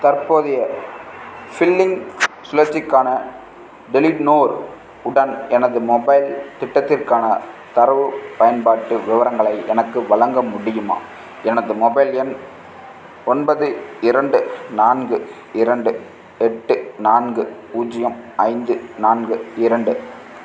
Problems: background sounds at intervals